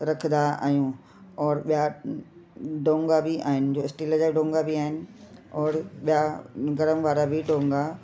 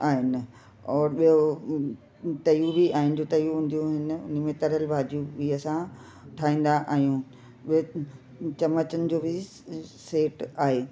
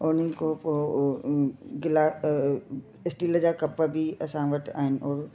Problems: constant background noise